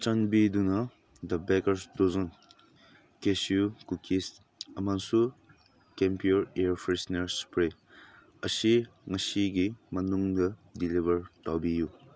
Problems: background sounds at intervals